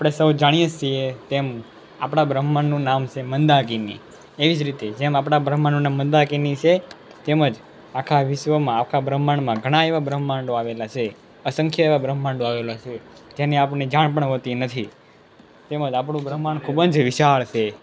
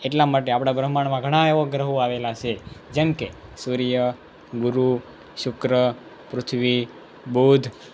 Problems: none marked